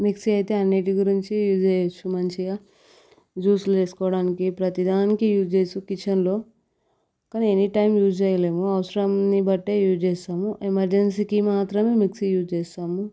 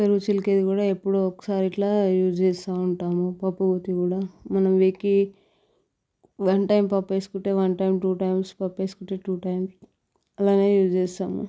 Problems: background sounds at intervals